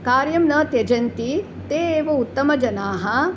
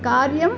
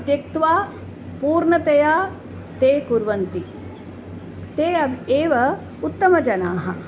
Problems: none marked